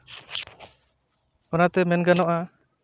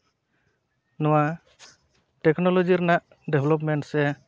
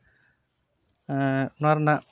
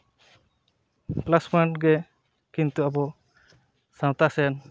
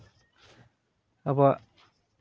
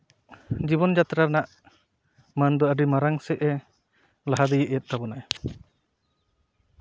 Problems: none marked